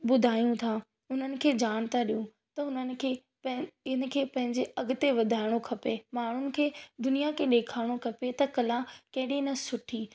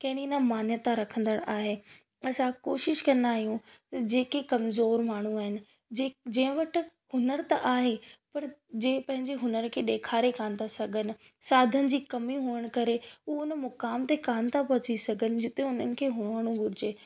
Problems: none marked